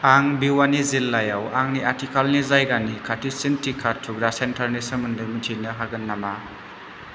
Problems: constant background noise